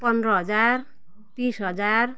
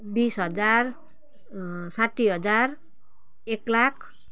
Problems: background sounds at intervals